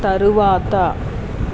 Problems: constant background noise